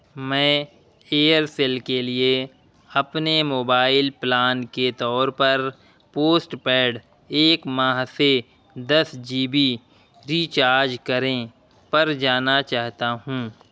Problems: constant background noise